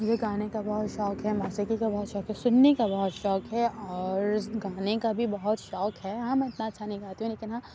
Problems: low volume